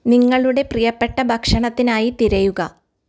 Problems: none marked